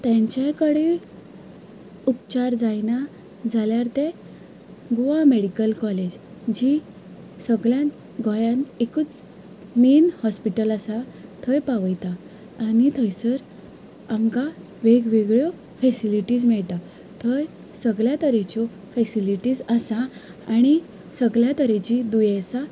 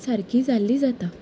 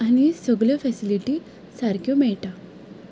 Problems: background sounds at intervals